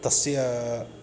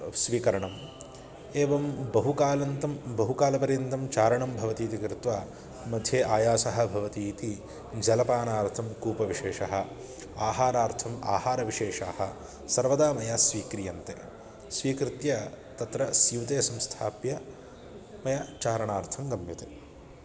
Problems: none marked